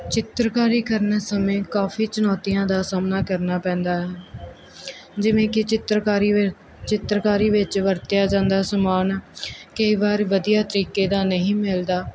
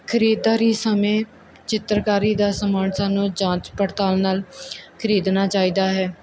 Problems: background sounds at intervals